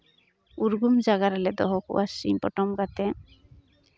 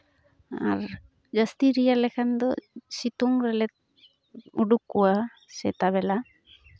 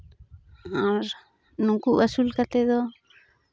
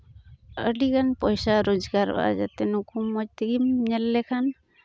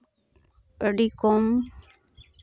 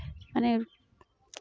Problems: constant background noise, background conversations at intervals